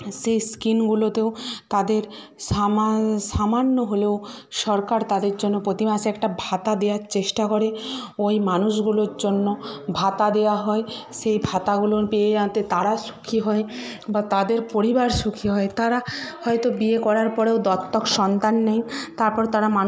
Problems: background conversations at intervals